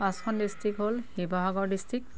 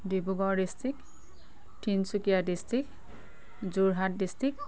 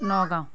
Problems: none marked